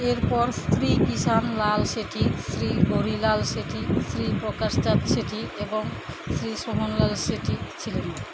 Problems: background conversations at intervals